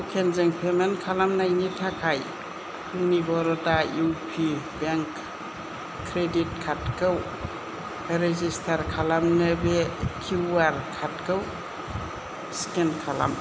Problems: constant background noise, low volume